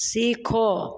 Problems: echo